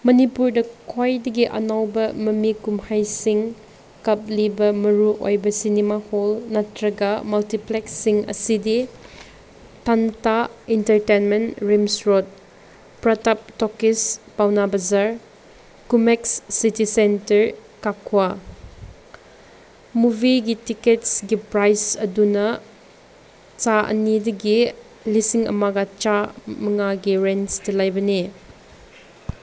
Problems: constant background noise